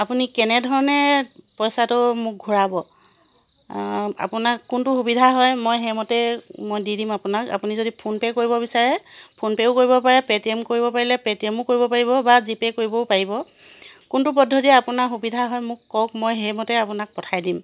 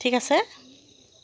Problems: constant background noise